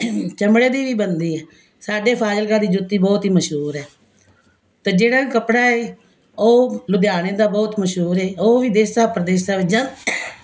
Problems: constant background noise